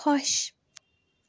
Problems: none marked